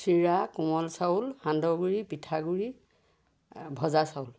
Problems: background sounds at intervals